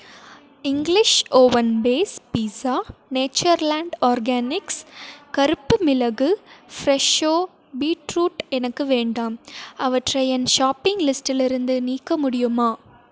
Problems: background conversations at intervals